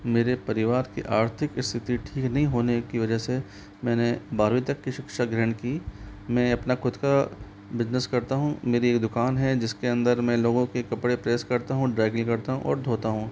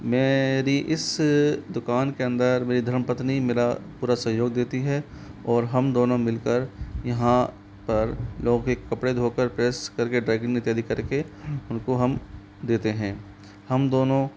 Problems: constant background noise